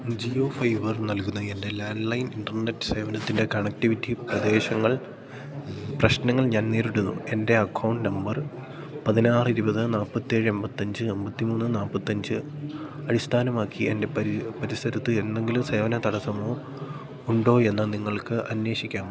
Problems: low volume